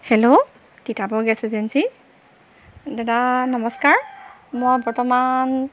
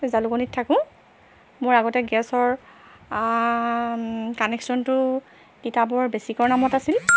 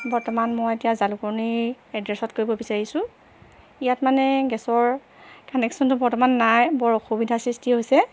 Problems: constant background noise